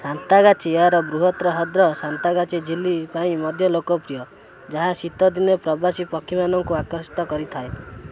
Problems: constant background noise